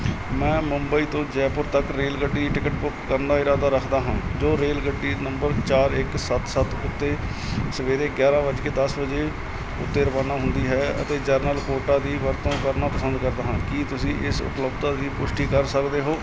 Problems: constant background noise